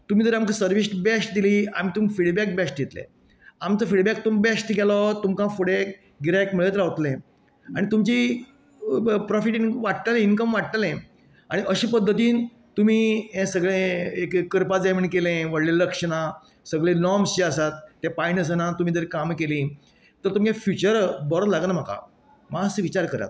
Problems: none marked